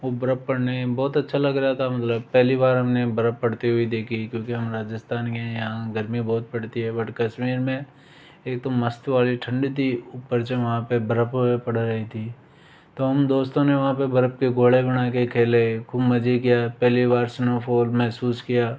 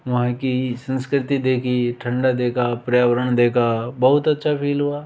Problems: background sounds at intervals